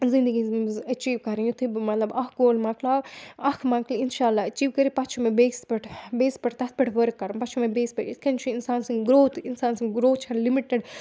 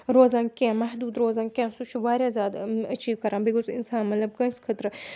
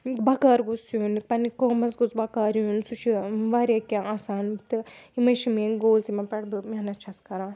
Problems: background sounds at intervals